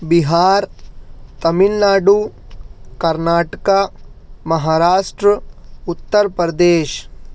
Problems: none marked